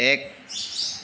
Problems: constant background noise